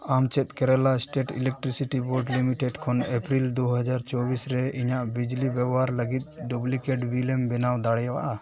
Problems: continuous background conversations